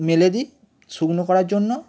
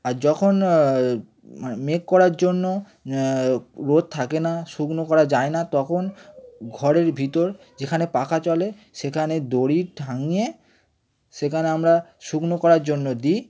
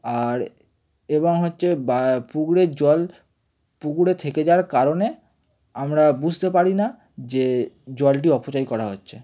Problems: none marked